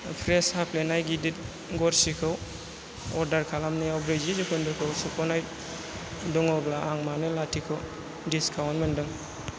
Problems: constant background noise